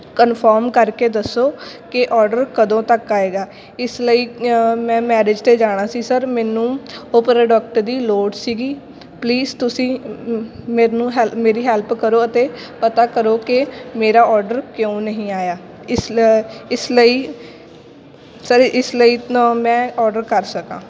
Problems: continuous background conversations